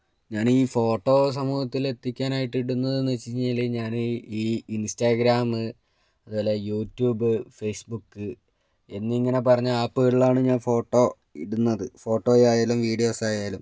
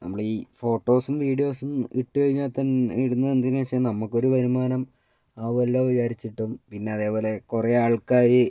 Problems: none marked